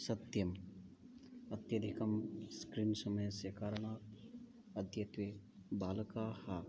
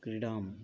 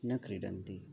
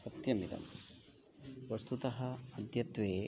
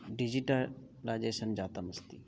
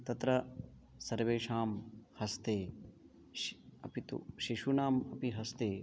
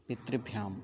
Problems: background sounds at intervals, background conversations at intervals